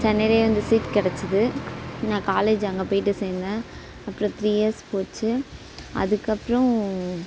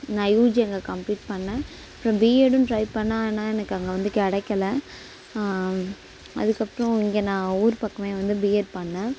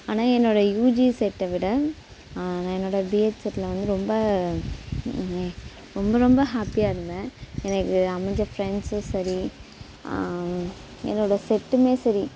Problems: constant background noise